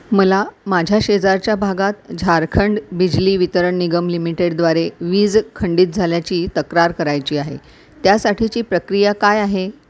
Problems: none marked